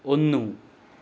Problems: none marked